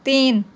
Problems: constant background noise